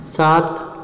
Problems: low volume